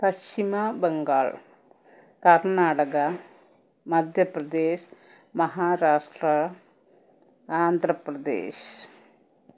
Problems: none marked